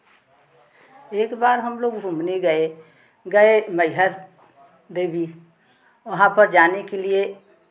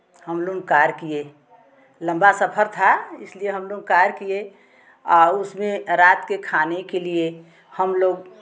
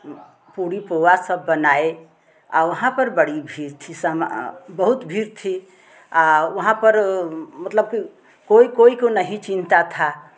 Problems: background sounds at intervals, background conversations at intervals